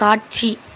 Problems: constant background noise